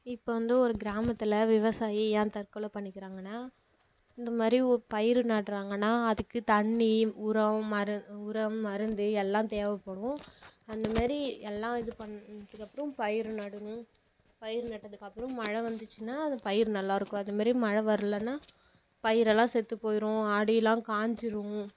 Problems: low volume